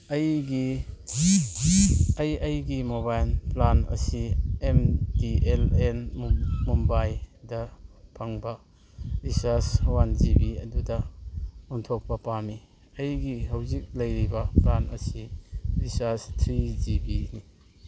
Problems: background sounds at intervals